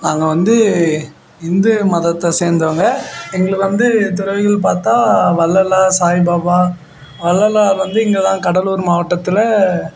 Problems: constant background noise